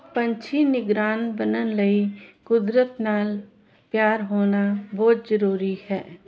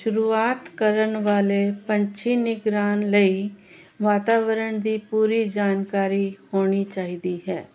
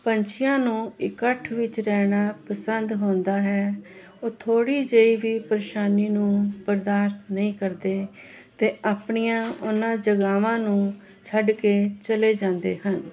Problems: none marked